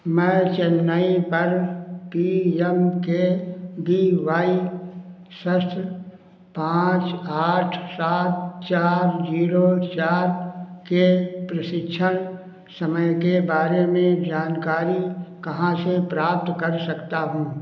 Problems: echo